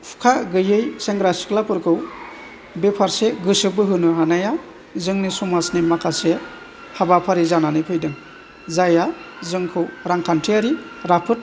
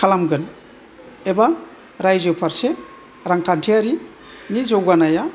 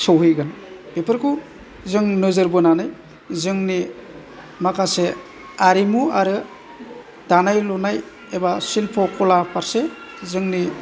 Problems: constant background noise